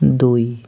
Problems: background sounds at intervals